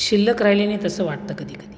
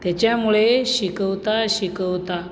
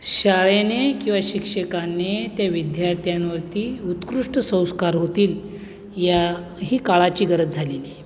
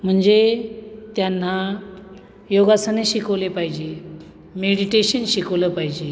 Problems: none marked